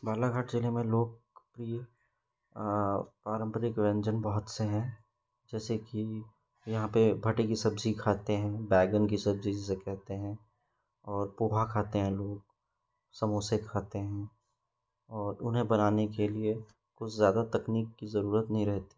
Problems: constant background noise